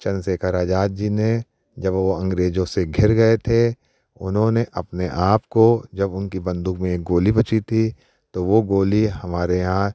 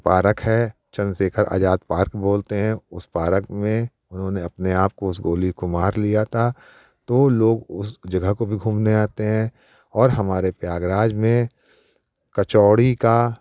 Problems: none marked